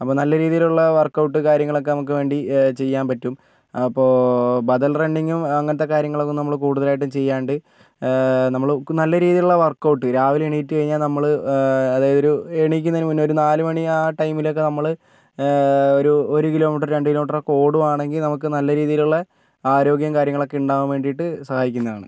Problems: none marked